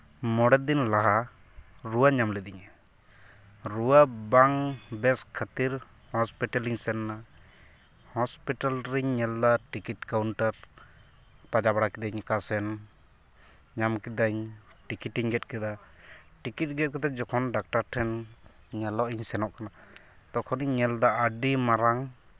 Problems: background sounds at intervals